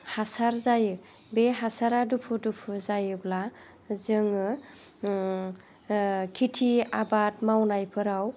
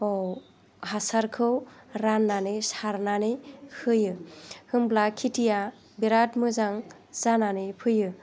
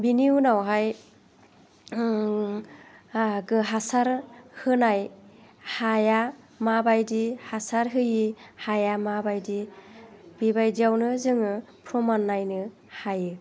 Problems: low volume